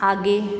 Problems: constant background noise